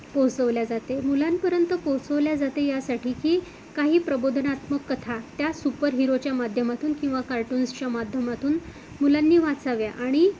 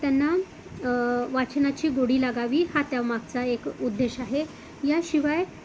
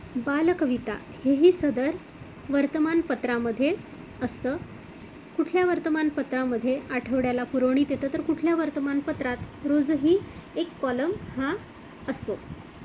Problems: constant background noise